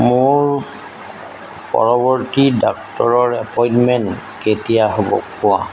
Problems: constant background noise